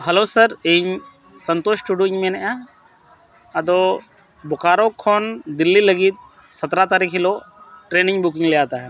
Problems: none marked